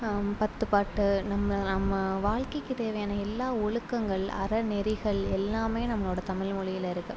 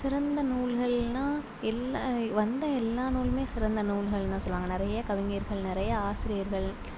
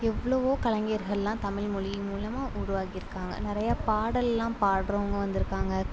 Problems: constant background noise, low volume